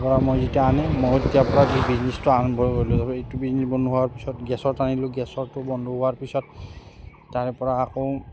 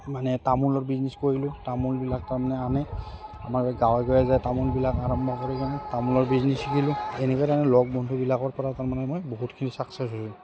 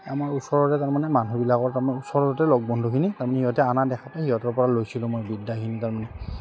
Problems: constant background noise